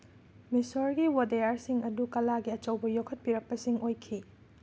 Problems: none marked